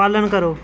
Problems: constant background noise